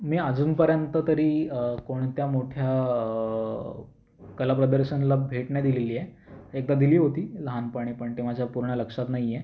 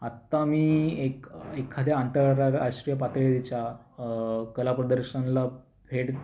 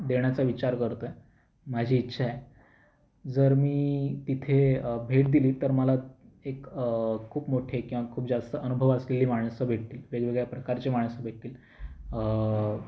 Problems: constant background noise